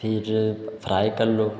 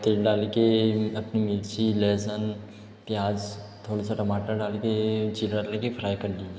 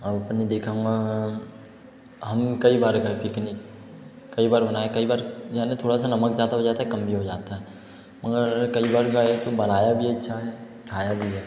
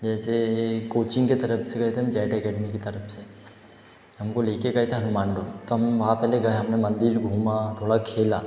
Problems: echo